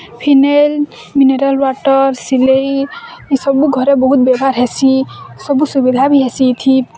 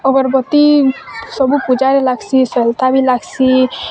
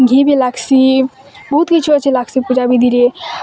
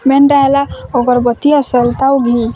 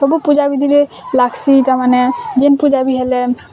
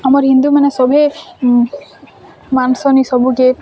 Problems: constant background noise, continuous background conversations